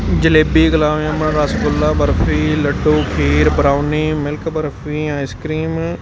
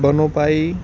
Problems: constant background noise